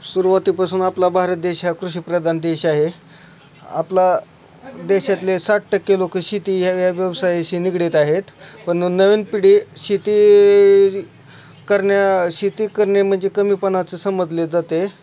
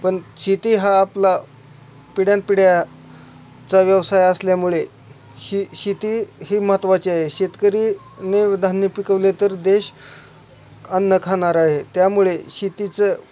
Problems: none marked